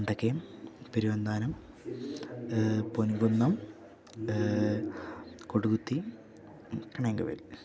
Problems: continuous background conversations